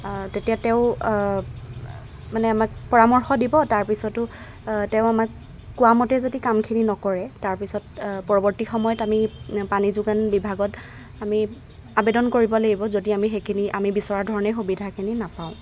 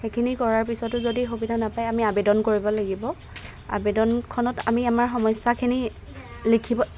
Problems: background sounds at intervals